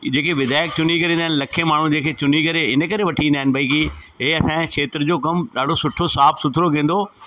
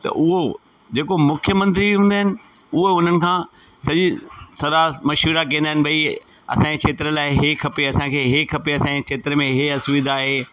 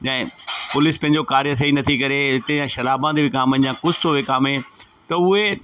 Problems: constant background noise, echo